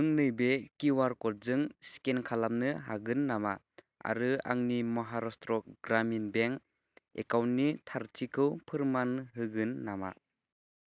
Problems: constant background noise